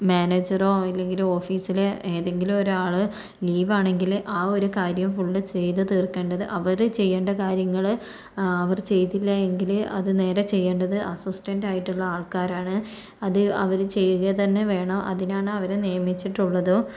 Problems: none marked